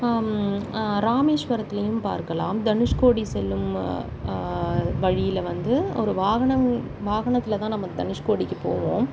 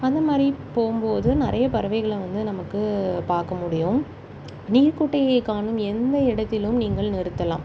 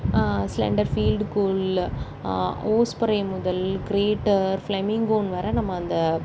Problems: constant background noise